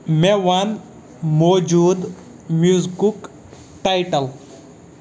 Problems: none marked